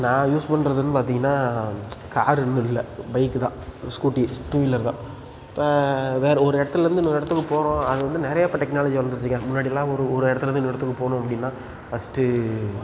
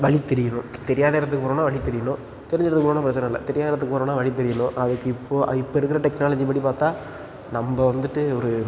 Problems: background sounds at intervals